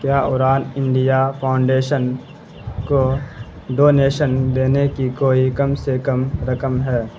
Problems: constant background noise